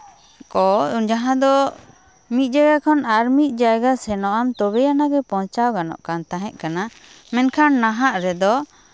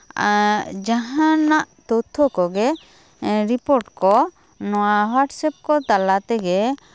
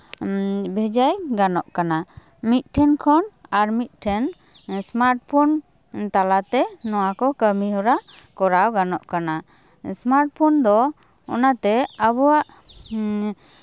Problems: background sounds at intervals